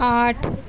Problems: background sounds at intervals